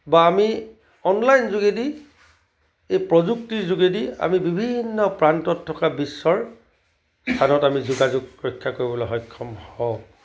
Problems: constant background noise